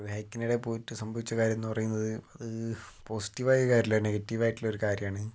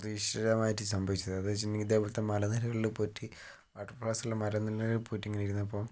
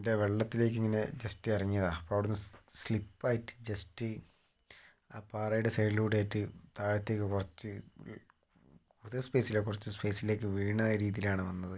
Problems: low volume